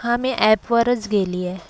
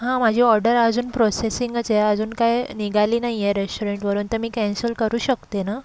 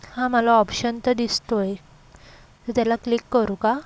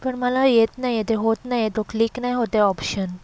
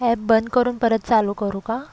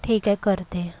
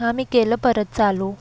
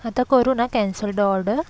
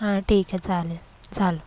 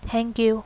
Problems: background sounds at intervals